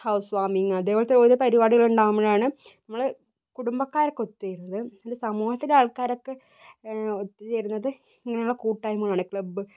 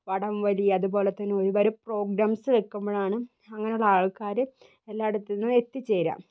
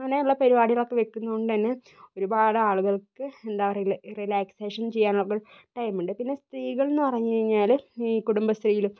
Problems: none marked